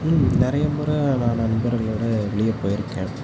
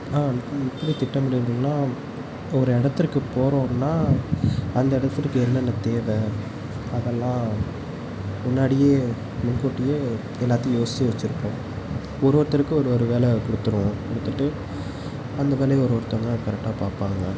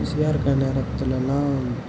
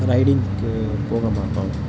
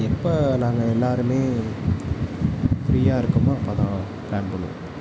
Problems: none marked